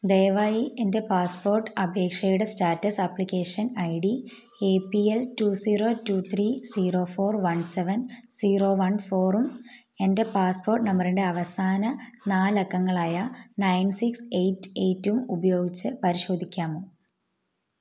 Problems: low volume